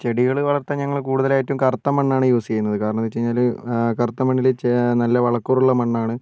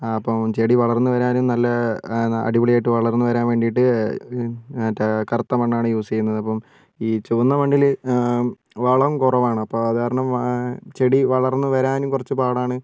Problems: none marked